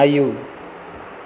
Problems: constant background noise